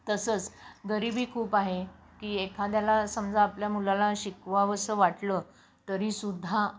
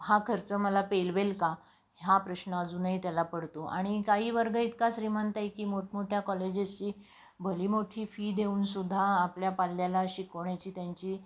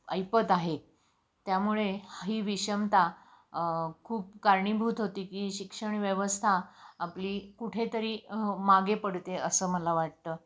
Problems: none marked